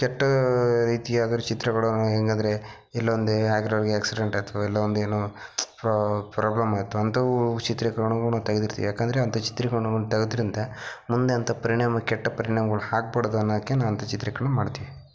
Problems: background sounds at intervals, low volume